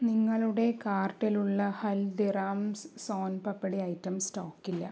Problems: low volume